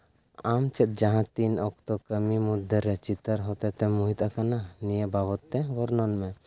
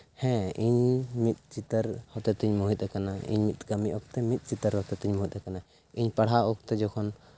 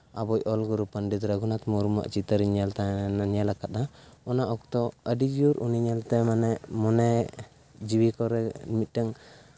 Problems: background sounds at intervals